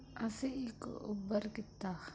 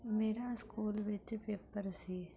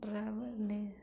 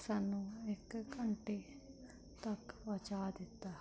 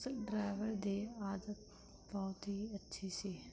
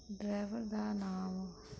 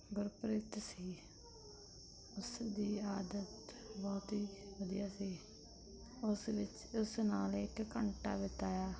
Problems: background sounds at intervals